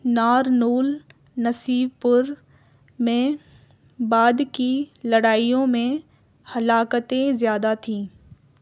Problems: none marked